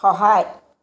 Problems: constant background noise, background conversations at intervals